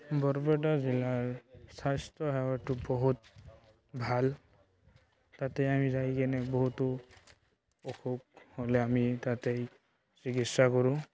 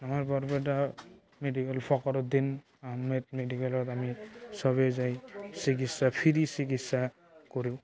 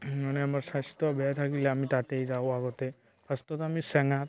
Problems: constant background noise, background conversations at intervals